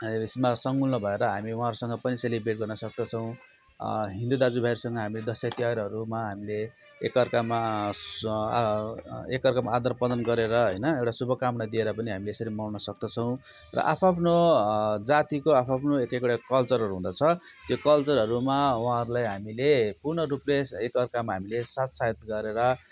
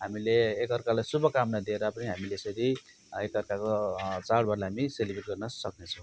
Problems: constant background noise